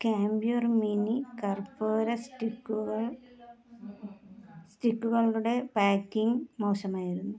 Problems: low volume